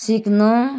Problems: constant background noise